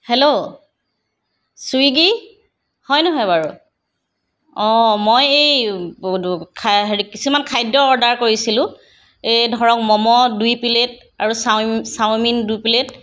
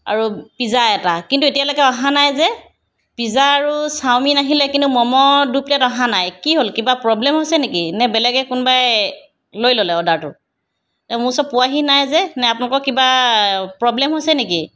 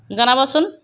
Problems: background sounds at intervals